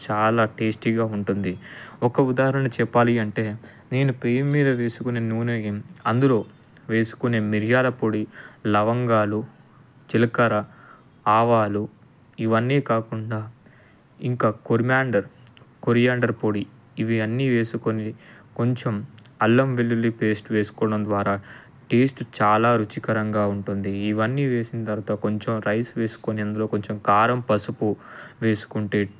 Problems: none marked